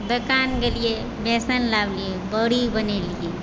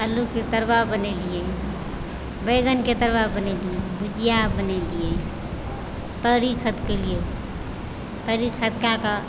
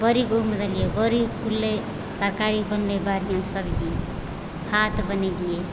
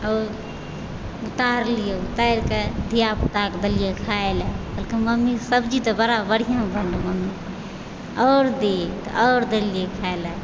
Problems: echo